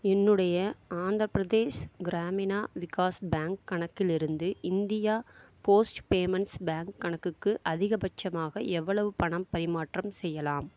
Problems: low volume